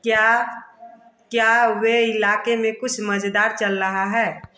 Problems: continuous background conversations